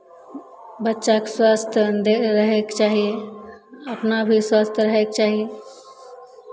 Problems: none marked